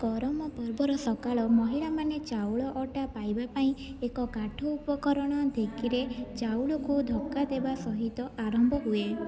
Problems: low volume